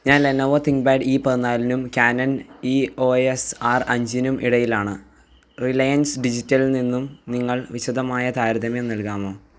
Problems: background sounds at intervals